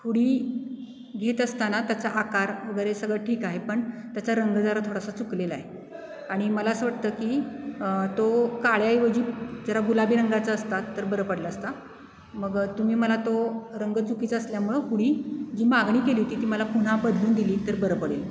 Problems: none marked